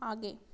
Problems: none marked